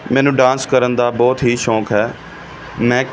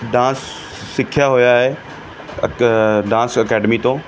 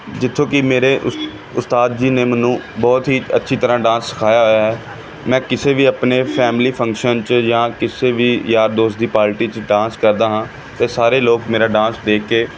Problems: background sounds at intervals